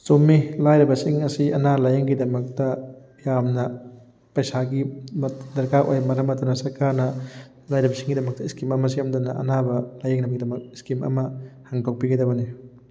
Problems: background sounds at intervals